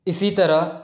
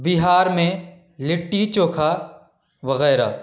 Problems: background conversations at intervals